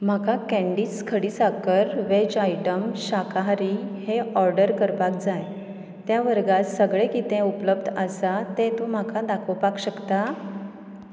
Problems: background sounds at intervals